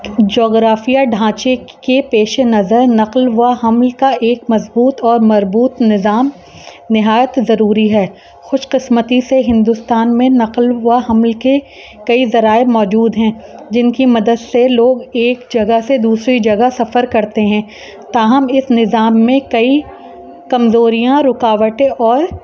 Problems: constant background noise